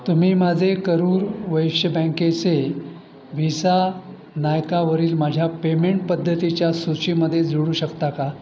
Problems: constant background noise